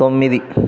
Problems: background conversations at intervals